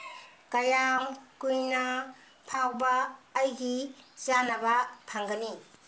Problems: background sounds at intervals